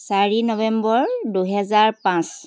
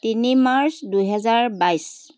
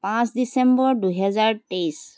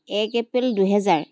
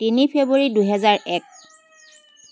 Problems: constant background noise